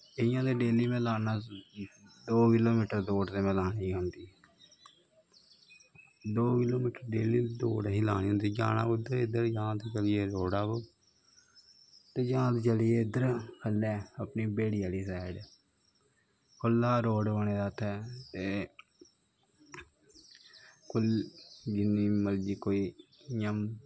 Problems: constant background noise